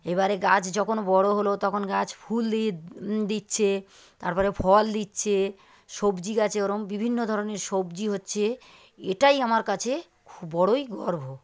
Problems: none marked